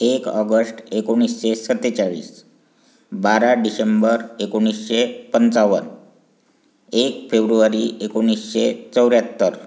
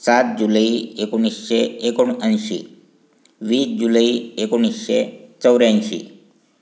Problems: constant background noise